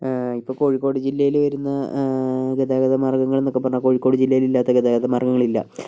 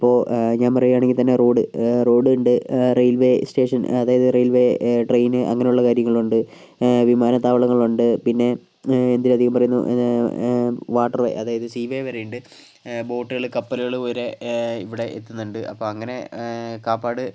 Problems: none marked